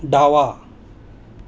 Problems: background sounds at intervals